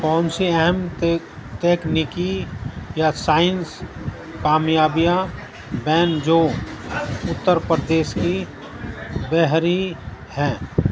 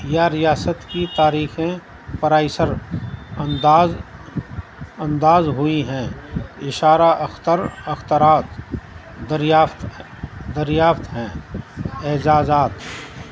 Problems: constant background noise